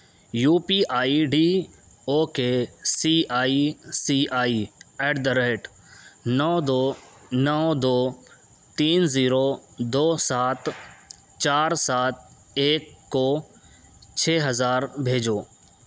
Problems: background sounds at intervals